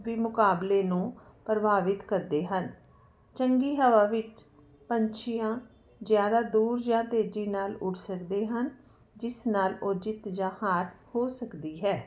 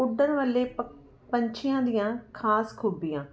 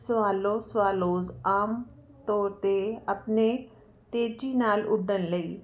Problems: none marked